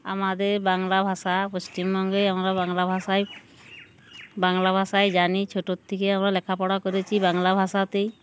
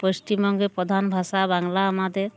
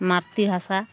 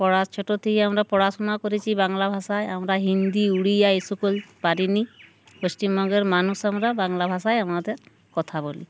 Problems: background sounds at intervals